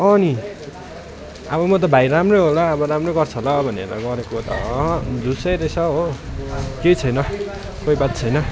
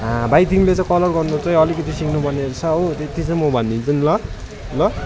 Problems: continuous background conversations